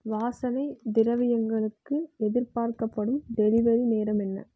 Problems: none marked